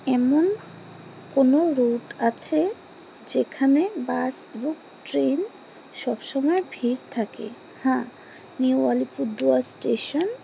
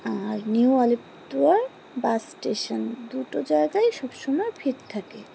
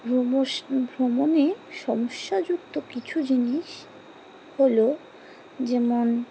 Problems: constant background noise